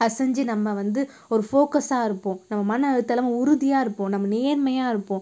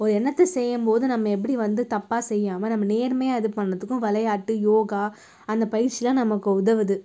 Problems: none marked